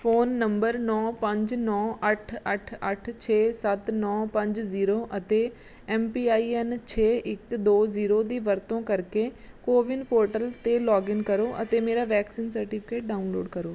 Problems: none marked